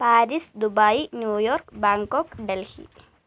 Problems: low volume